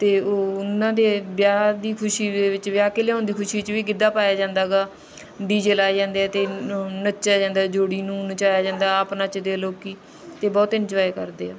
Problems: constant background noise